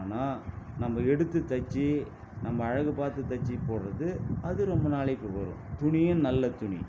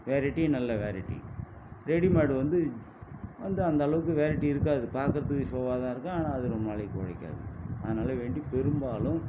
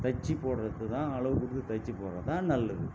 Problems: constant background noise